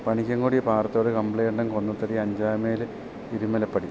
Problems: constant background noise